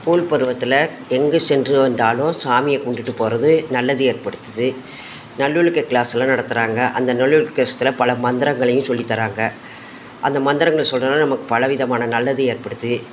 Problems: constant background noise